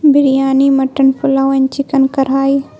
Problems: constant background noise